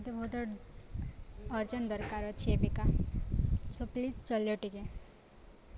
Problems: constant background noise, continuous background conversations